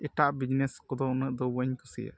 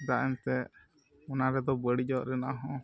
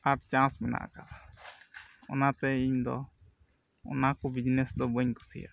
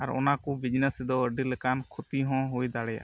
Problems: none marked